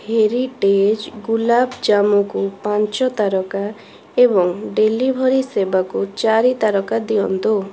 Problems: constant background noise